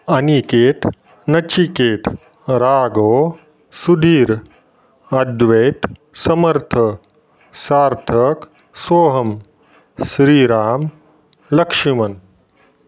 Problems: none marked